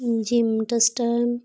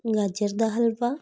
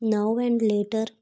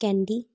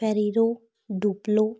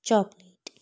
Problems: background sounds at intervals